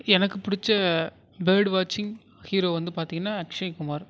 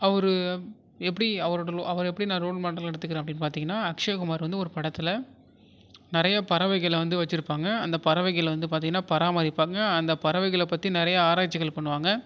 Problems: none marked